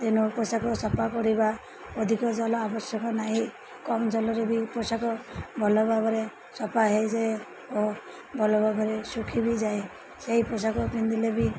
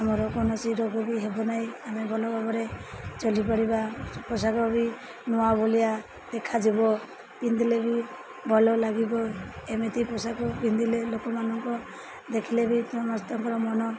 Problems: constant background noise, background conversations at intervals